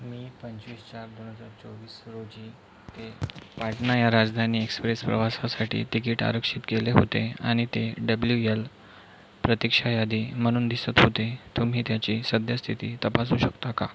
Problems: constant background noise